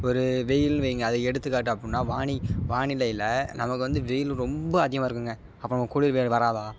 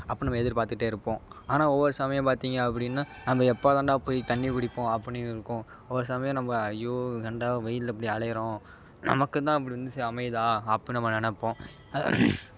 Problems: constant background noise